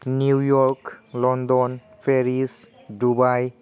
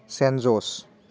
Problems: constant background noise